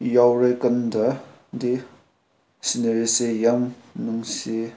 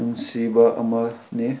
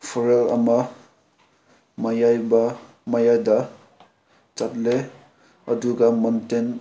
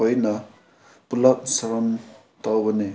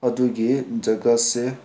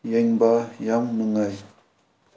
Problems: background sounds at intervals